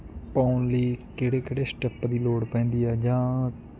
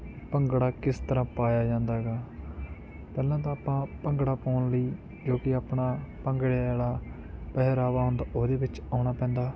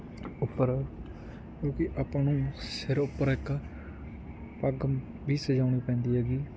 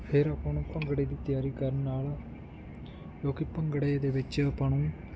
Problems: constant background noise